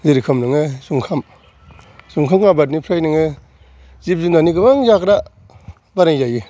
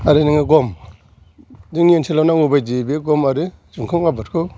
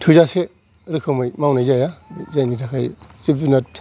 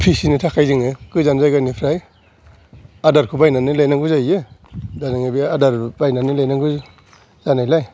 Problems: background sounds at intervals